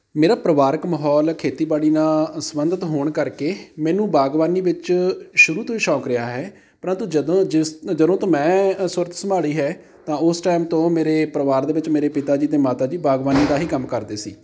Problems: background sounds at intervals